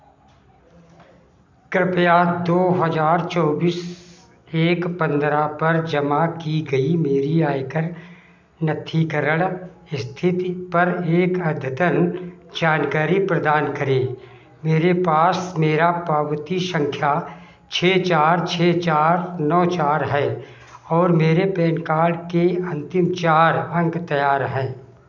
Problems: constant background noise